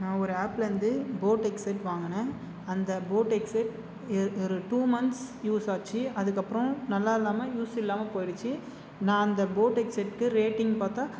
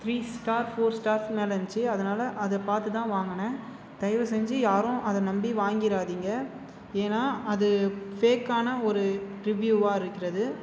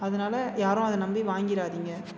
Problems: constant background noise